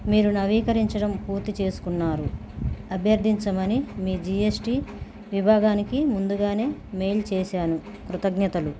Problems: background sounds at intervals